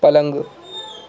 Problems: constant background noise